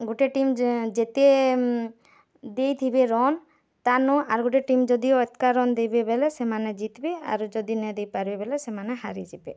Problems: none marked